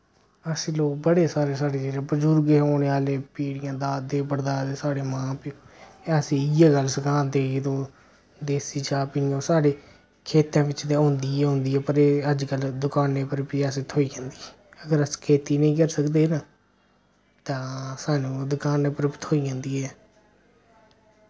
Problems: none marked